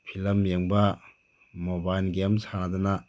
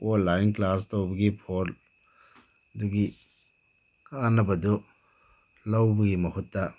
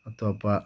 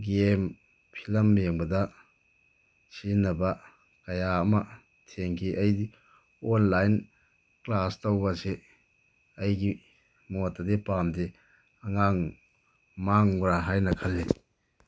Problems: constant background noise